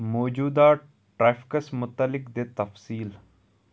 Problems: background sounds at intervals